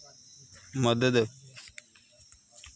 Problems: background sounds at intervals